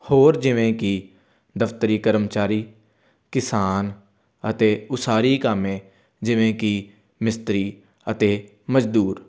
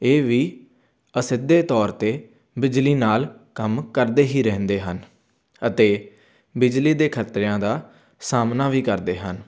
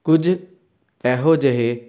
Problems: none marked